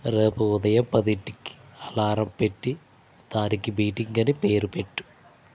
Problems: constant background noise